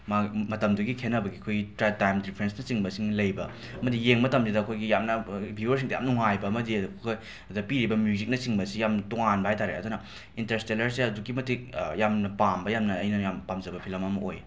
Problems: background sounds at intervals